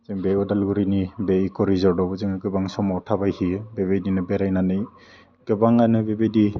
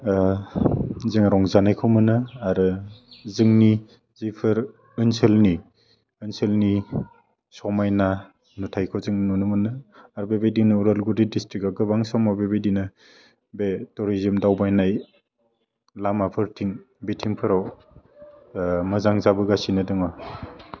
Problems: low volume